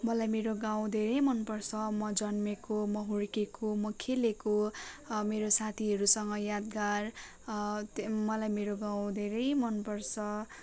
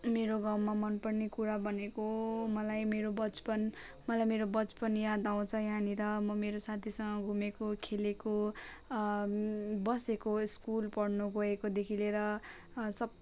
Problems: constant background noise